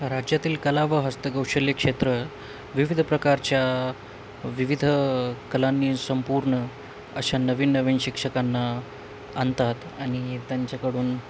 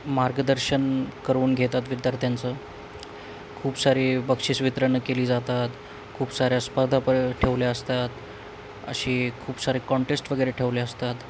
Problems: constant background noise